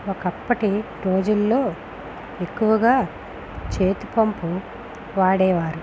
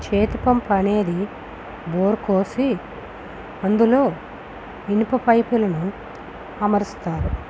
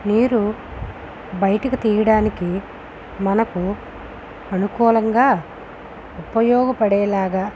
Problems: constant background noise